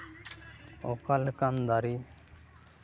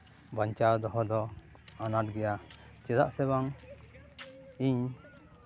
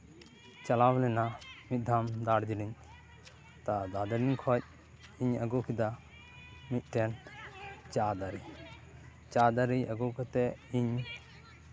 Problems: continuous background conversations